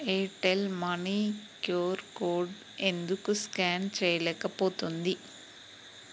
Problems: constant background noise